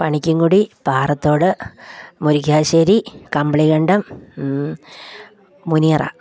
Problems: background conversations at intervals